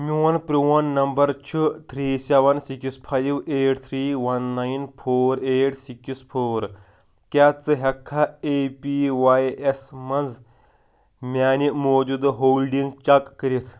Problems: background sounds at intervals